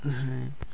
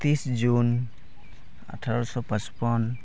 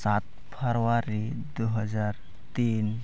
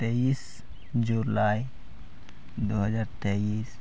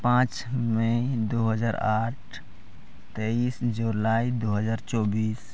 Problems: none marked